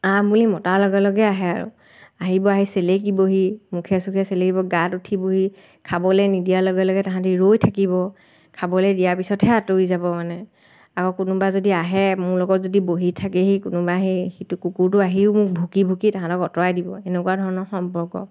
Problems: constant background noise